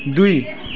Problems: background sounds at intervals